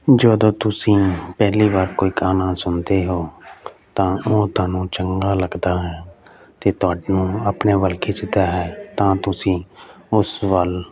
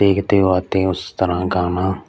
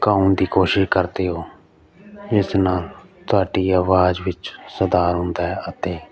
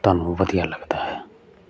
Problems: none marked